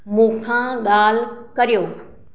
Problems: none marked